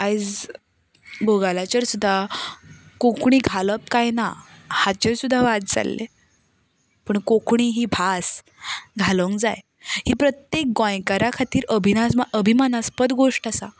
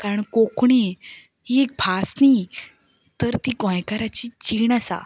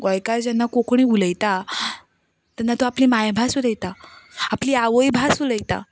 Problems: none marked